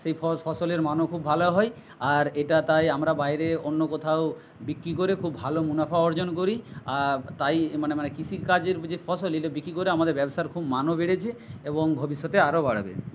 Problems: none marked